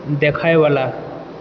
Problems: background sounds at intervals